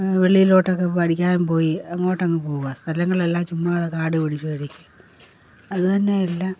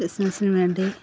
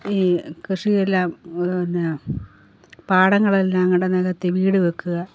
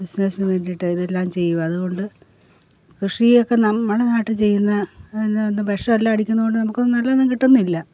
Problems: none marked